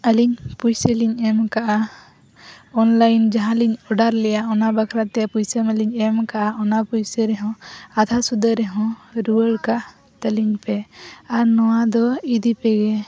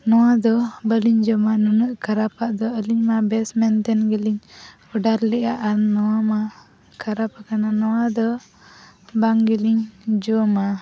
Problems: background conversations at intervals